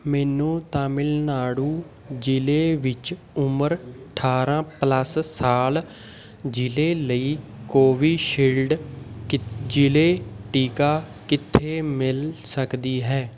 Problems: constant background noise, background conversations at intervals